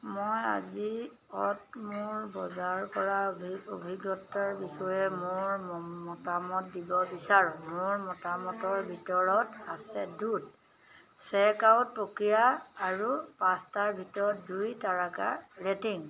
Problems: none marked